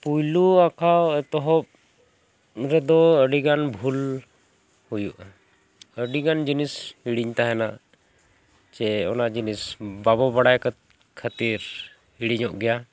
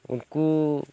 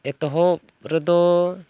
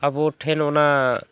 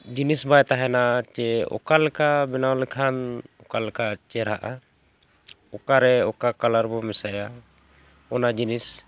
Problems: none marked